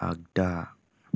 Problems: low volume